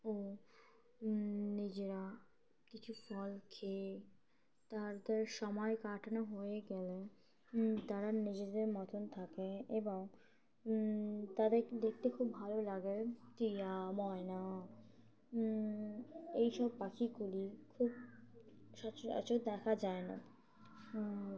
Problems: constant background noise